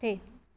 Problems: background sounds at intervals